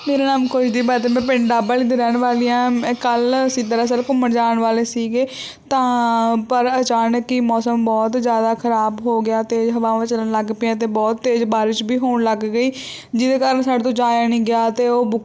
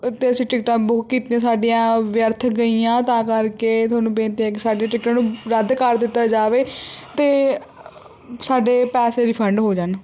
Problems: background sounds at intervals